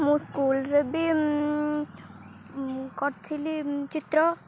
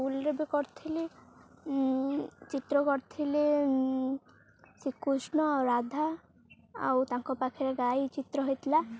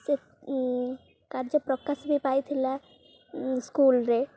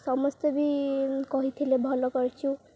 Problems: none marked